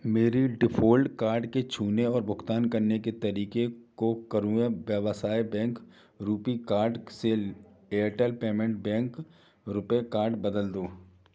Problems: background sounds at intervals, background conversations at intervals